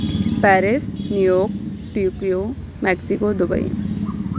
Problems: none marked